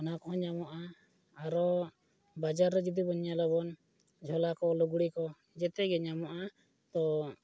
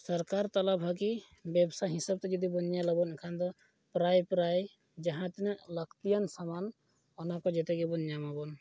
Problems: none marked